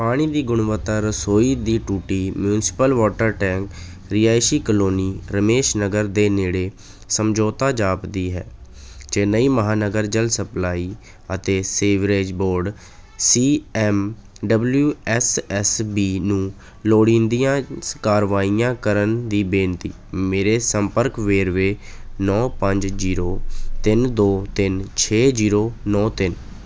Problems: none marked